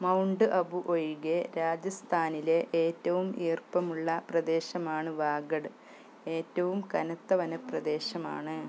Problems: low volume